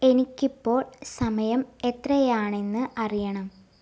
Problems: background sounds at intervals